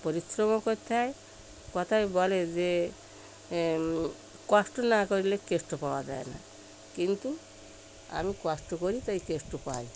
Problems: none marked